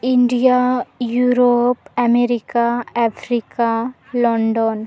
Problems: background conversations at intervals